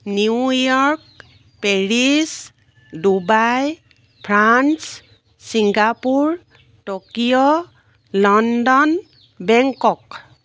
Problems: background sounds at intervals